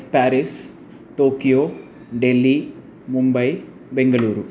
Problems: constant background noise